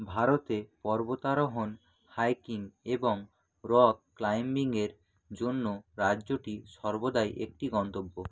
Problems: none marked